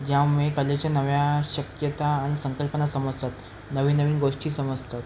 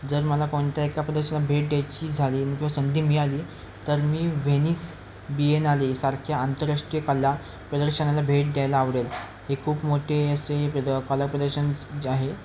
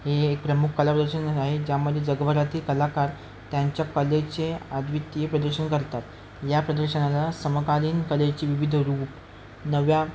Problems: constant background noise, continuous background conversations